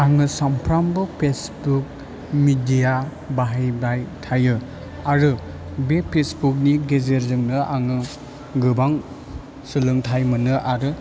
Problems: none marked